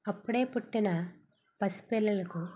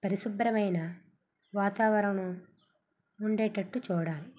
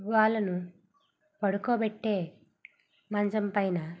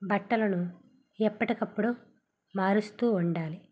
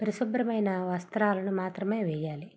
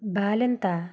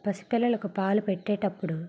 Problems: background sounds at intervals